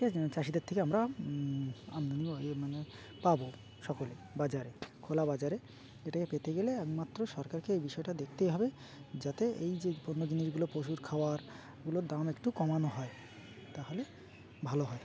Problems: constant background noise, background conversations at intervals